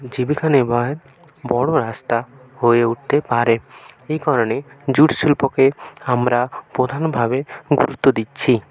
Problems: none marked